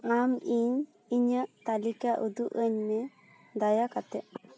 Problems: none marked